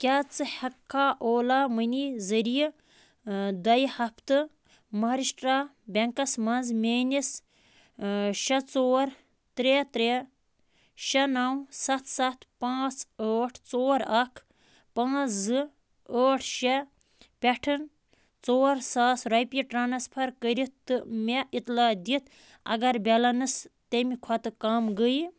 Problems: none marked